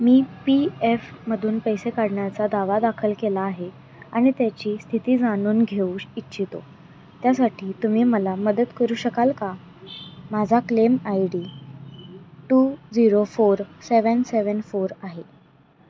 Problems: constant background noise